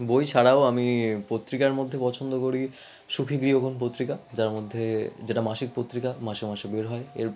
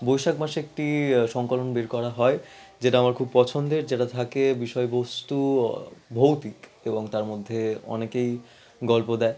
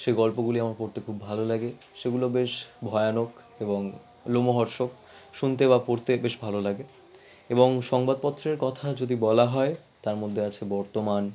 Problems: background conversations at intervals